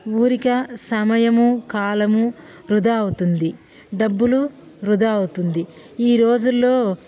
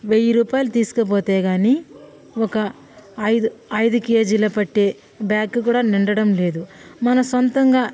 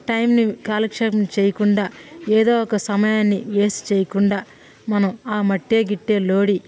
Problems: background sounds at intervals